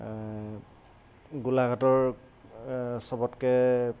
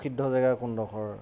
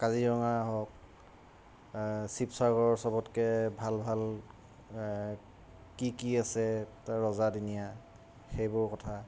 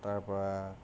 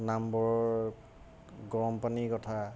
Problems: constant background noise